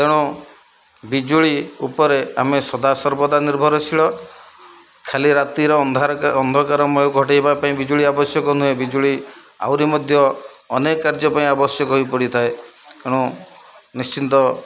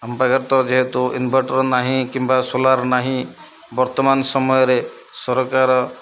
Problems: low volume